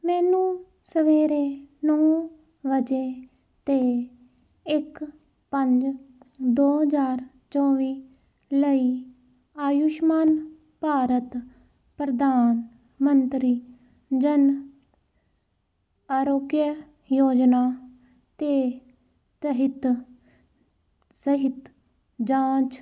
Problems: none marked